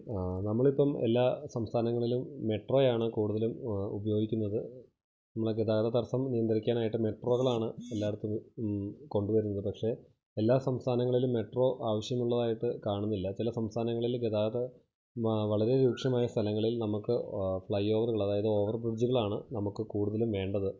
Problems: low volume